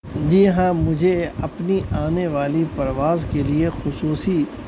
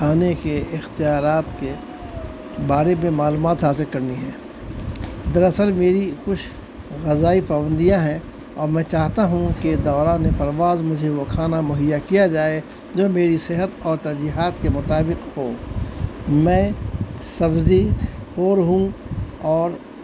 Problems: constant background noise